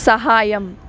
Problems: constant background noise, background conversations at intervals